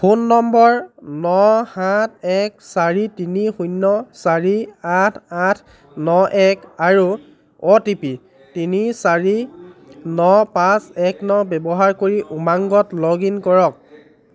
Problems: background conversations at intervals